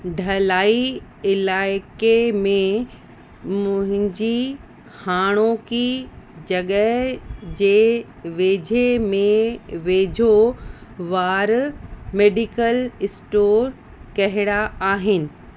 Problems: constant background noise